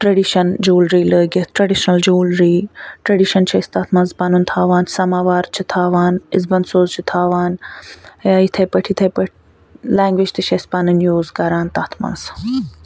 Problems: none marked